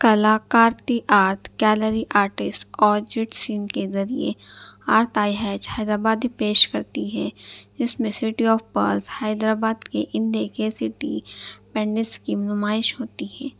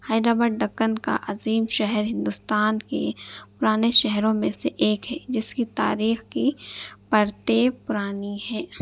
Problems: none marked